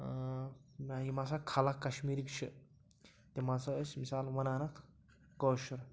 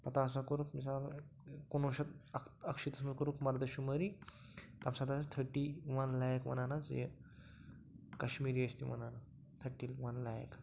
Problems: low volume